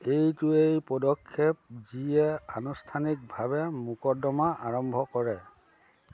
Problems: constant background noise